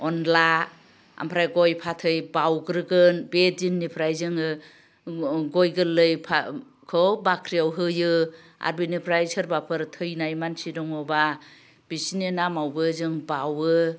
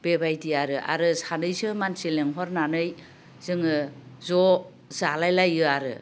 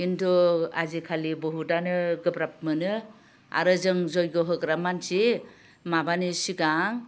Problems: low volume